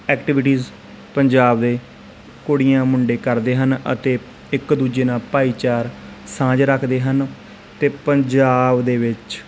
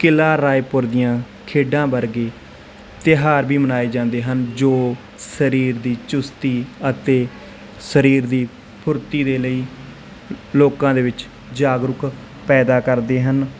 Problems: constant background noise, background conversations at intervals